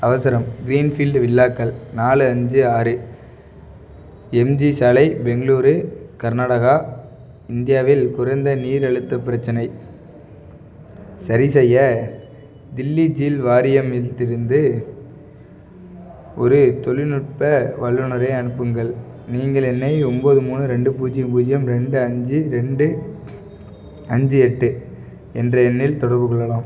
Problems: none marked